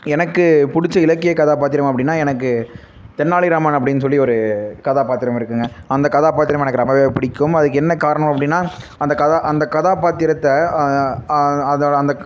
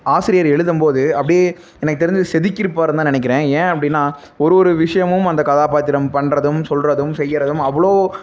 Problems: constant background noise